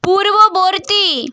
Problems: none marked